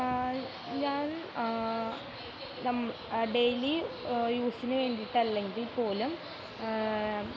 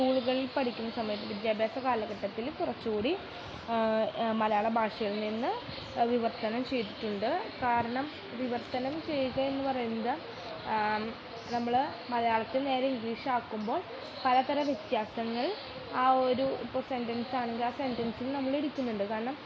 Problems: constant background noise, background conversations at intervals, low volume